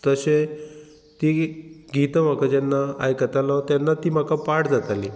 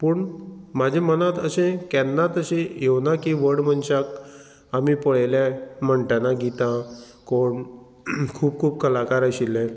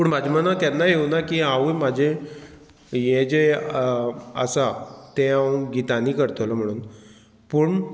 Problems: background sounds at intervals